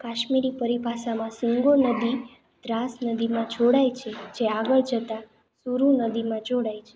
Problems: constant background noise